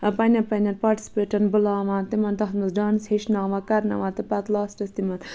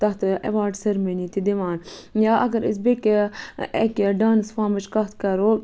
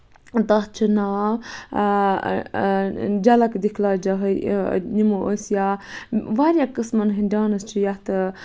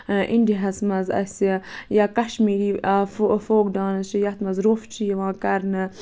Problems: background sounds at intervals